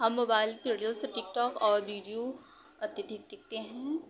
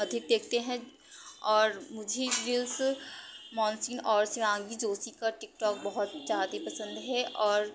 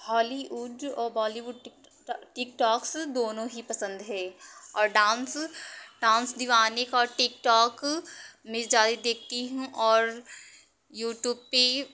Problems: constant background noise, background conversations at intervals